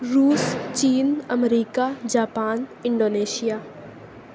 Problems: none marked